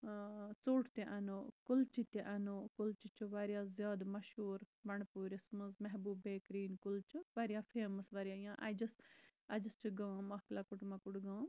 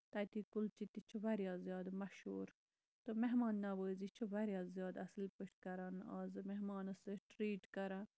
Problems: none marked